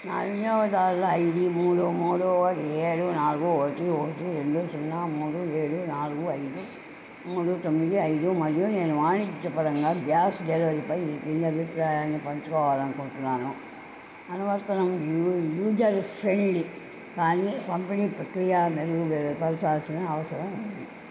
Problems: constant background noise